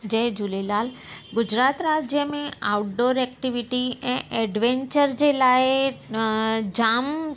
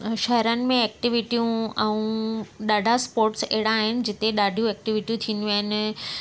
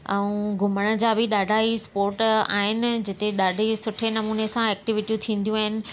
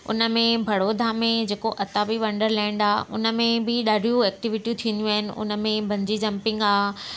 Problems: constant background noise